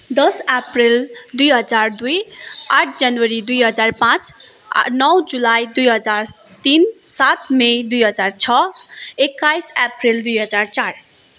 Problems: none marked